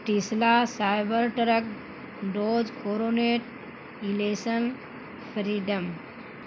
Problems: constant background noise